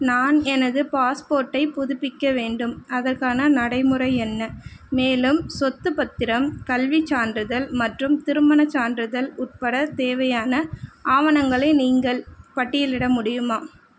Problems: none marked